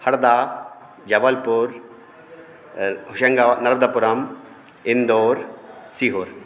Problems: background sounds at intervals